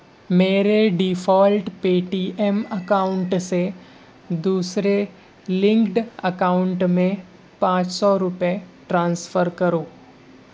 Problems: constant background noise, low volume